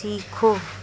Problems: constant background noise, low volume